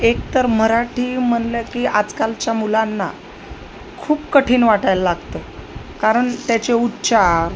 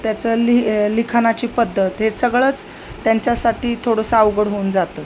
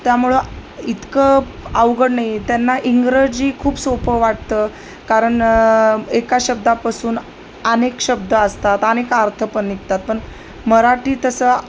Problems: constant background noise